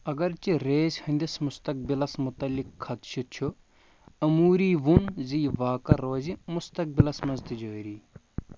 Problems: constant background noise